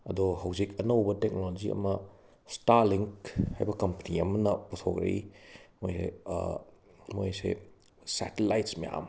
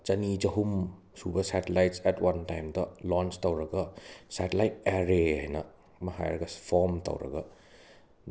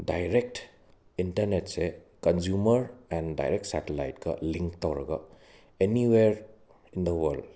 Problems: background sounds at intervals